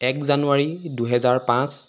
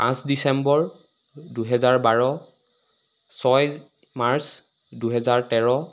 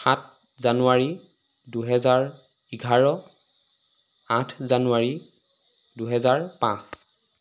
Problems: constant background noise